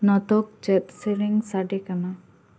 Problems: echo